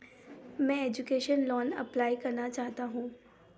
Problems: background sounds at intervals